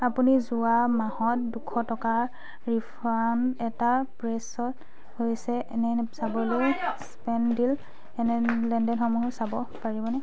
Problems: none marked